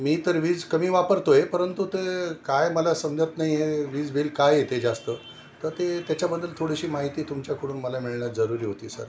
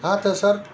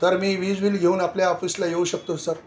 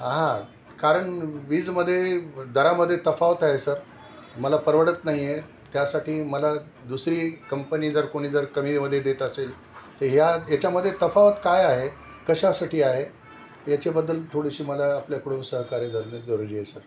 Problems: none marked